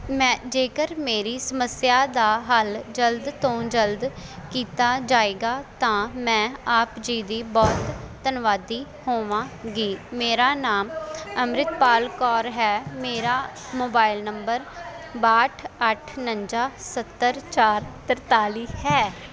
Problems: constant background noise, background conversations at intervals